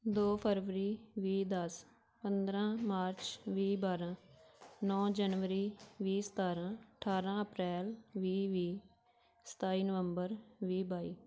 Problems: background sounds at intervals